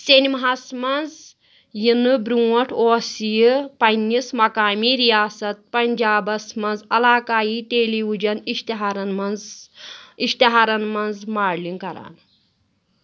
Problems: background sounds at intervals